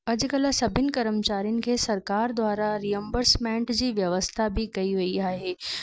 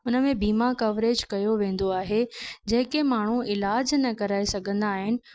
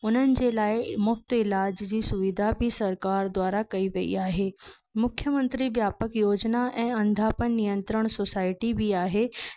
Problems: background sounds at intervals, echo